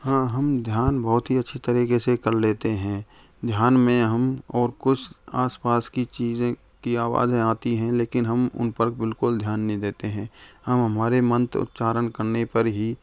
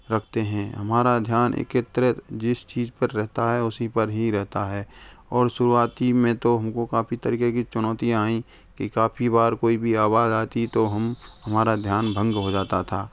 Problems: constant background noise